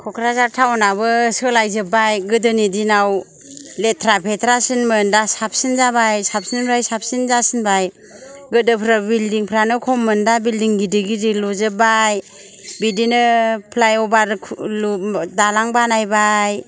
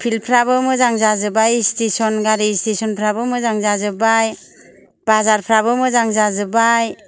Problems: none marked